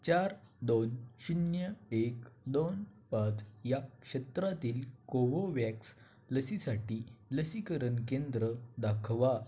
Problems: constant background noise